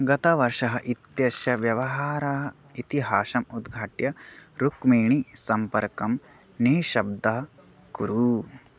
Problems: none marked